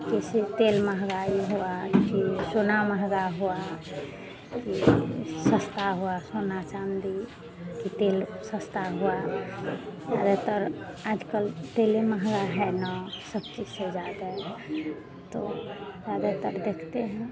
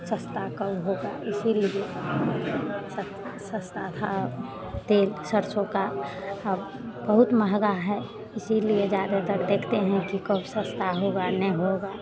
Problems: background sounds at intervals